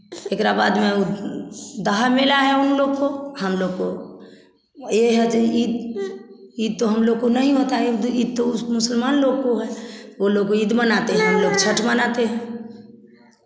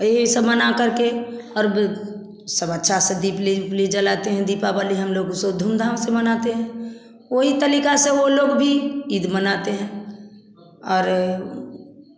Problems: constant background noise, background conversations at intervals, echo